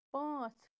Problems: none marked